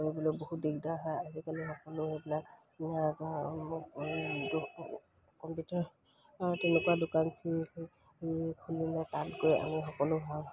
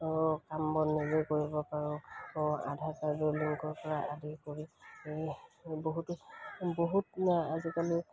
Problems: background sounds at intervals